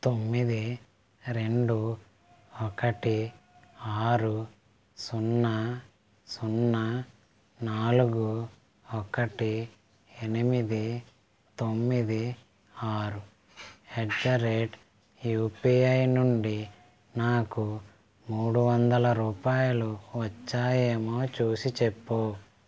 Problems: background sounds at intervals